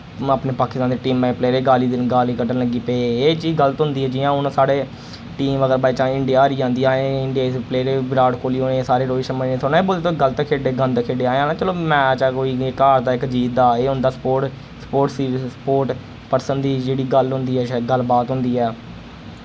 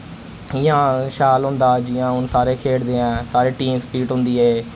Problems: none marked